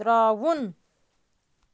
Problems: constant background noise